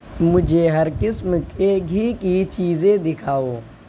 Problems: none marked